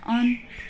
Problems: background sounds at intervals